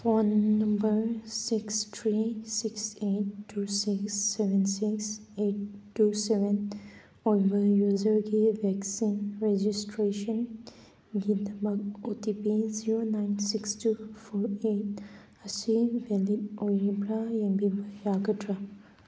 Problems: background sounds at intervals